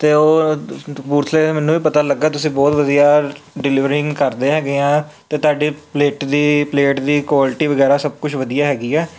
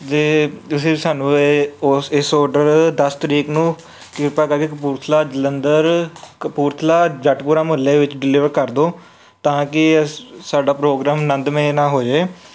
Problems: none marked